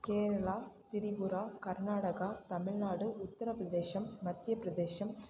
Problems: background sounds at intervals